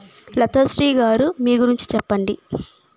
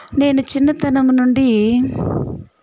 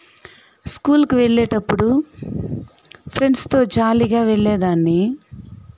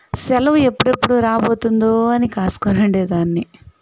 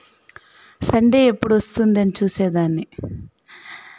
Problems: background sounds at intervals, background conversations at intervals